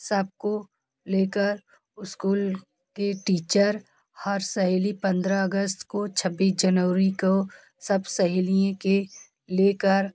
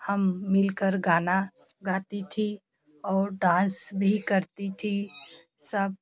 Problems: none marked